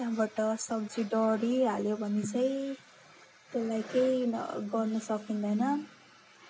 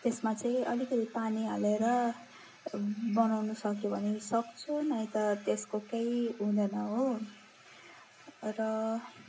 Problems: background sounds at intervals